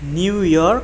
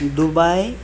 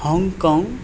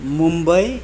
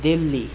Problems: background sounds at intervals